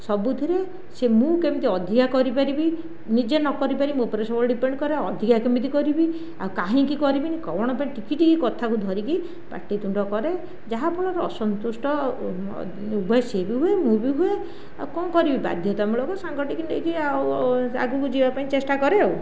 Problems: none marked